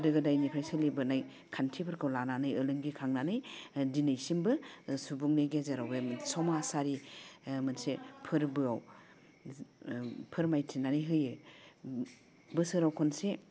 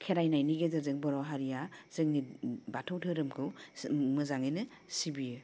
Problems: none marked